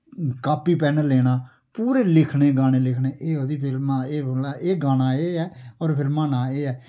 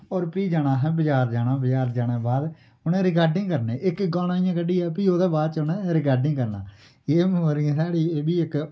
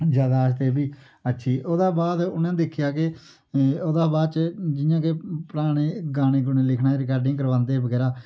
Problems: none marked